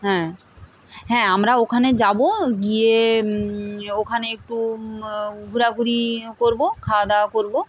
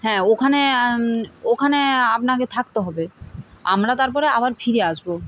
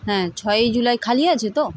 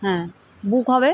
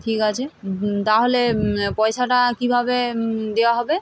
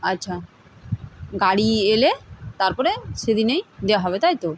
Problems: constant background noise